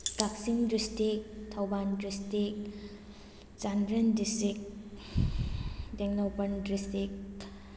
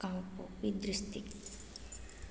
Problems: background sounds at intervals